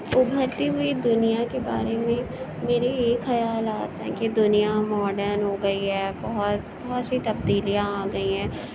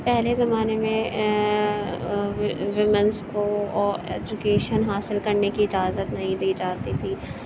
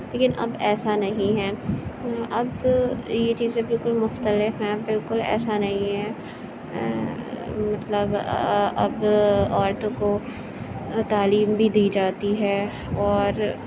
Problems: constant background noise